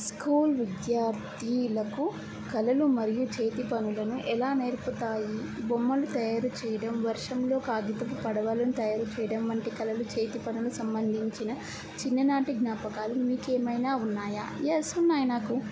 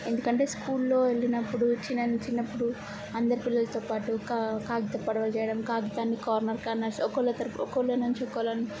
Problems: none marked